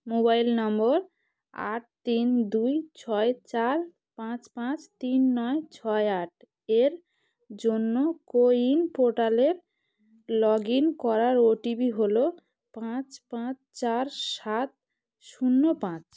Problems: none marked